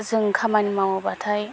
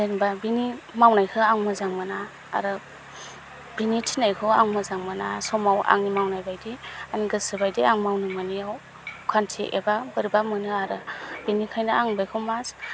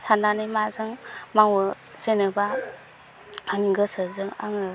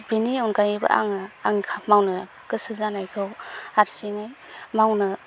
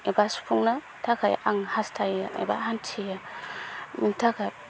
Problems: constant background noise